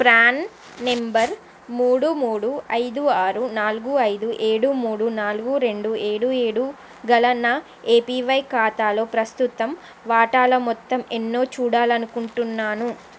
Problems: constant background noise